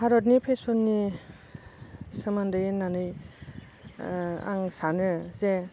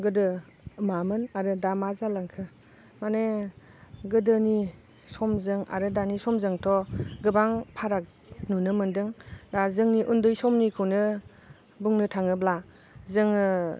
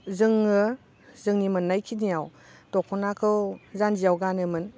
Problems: none marked